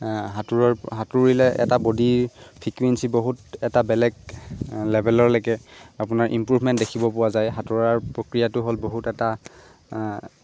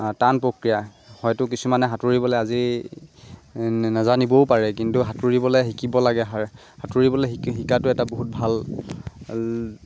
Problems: constant background noise